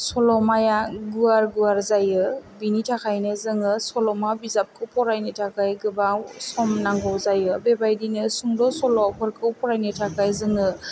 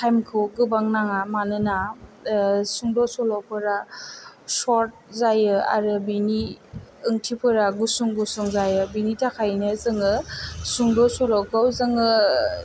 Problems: low volume